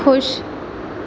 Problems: none marked